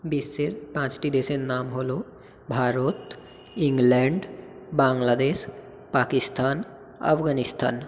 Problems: echo